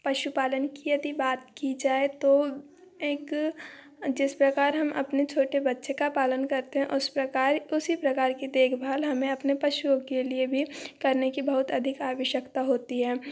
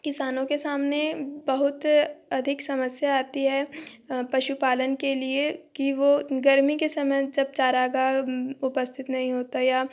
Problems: none marked